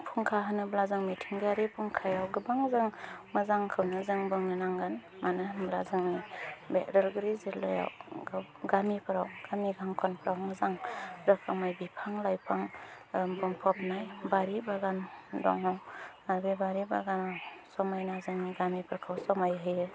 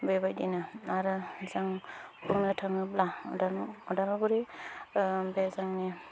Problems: low volume